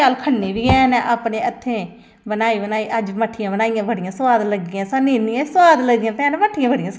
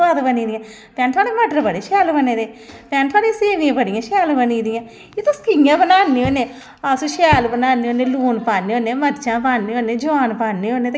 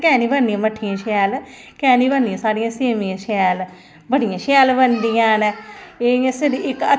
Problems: none marked